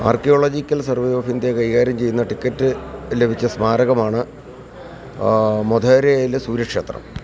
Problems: constant background noise